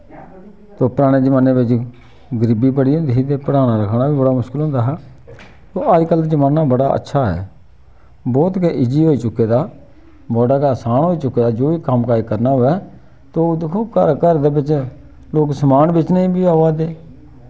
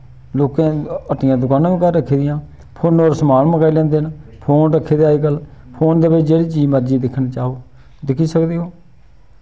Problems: none marked